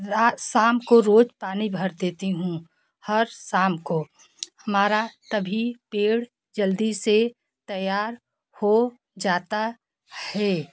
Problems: background sounds at intervals, background conversations at intervals